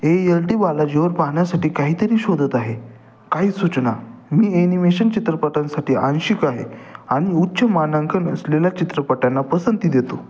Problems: constant background noise, echo